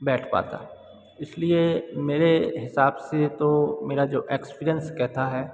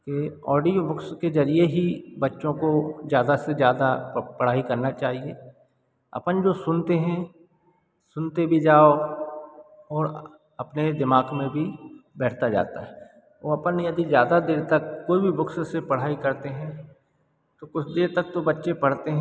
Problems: background sounds at intervals